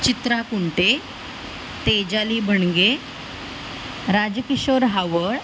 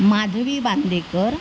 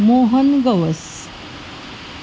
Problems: constant background noise